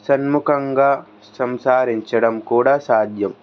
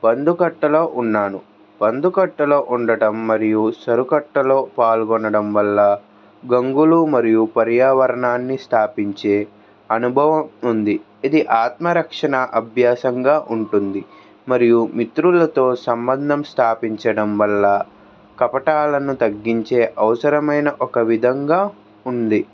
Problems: background sounds at intervals